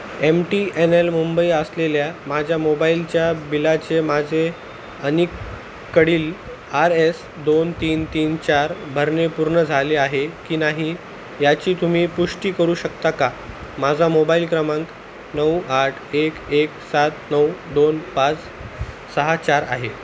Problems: constant background noise